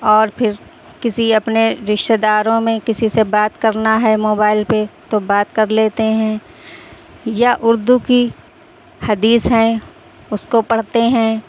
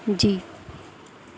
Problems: constant background noise